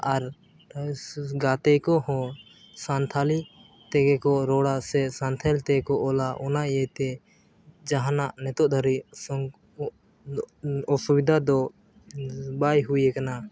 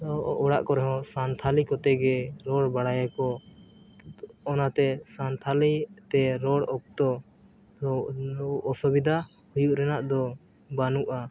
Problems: background sounds at intervals, low volume